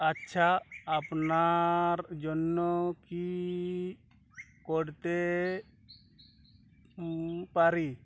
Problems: background sounds at intervals, background conversations at intervals